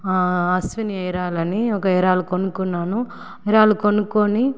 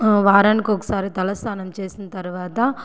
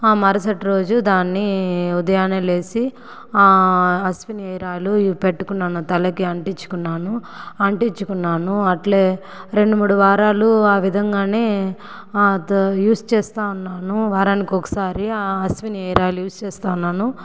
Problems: background sounds at intervals, background conversations at intervals